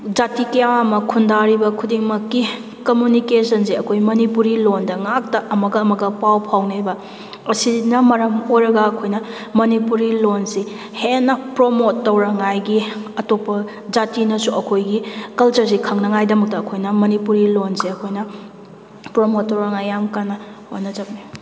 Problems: constant background noise